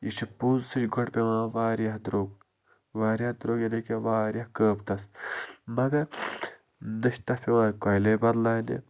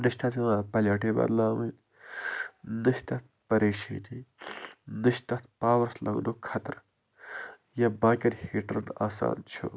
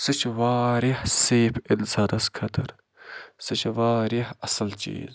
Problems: constant background noise